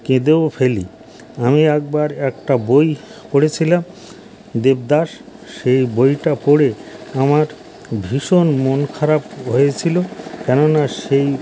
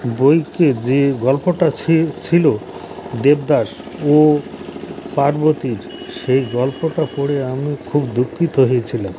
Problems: none marked